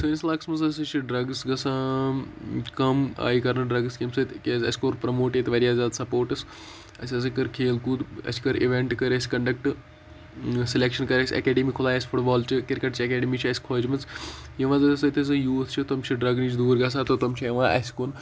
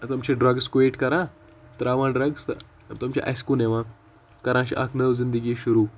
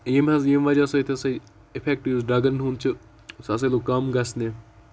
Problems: constant background noise